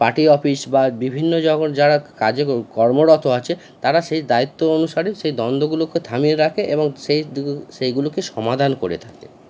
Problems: constant background noise